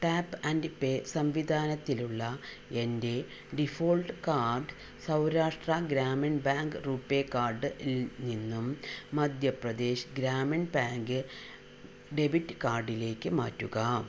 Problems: constant background noise, low volume